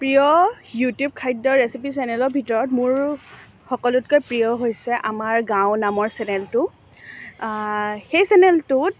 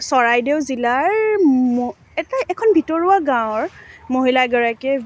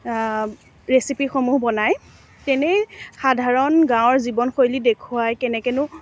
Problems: none marked